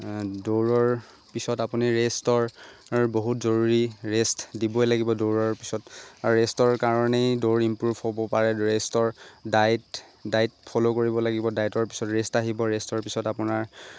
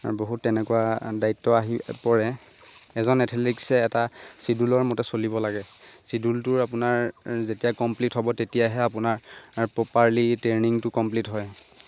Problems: constant background noise